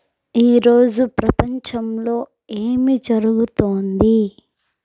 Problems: background sounds at intervals